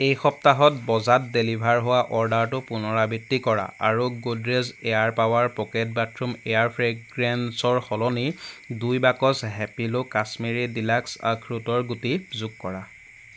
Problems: background sounds at intervals